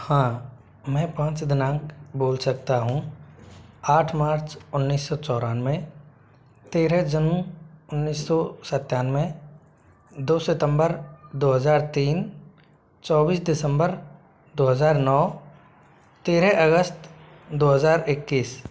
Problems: constant background noise